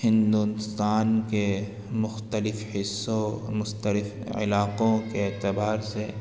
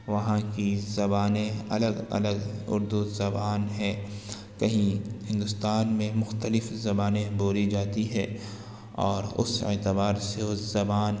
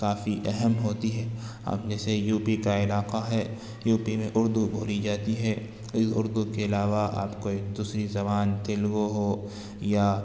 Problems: background sounds at intervals